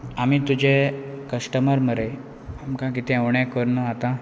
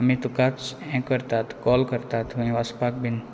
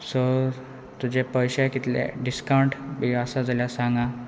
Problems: none marked